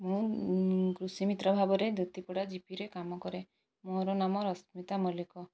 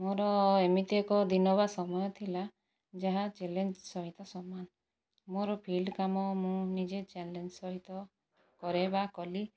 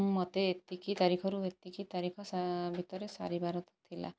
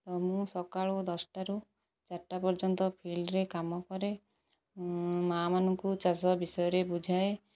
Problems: background sounds at intervals, low volume